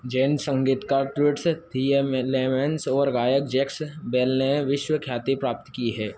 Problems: constant background noise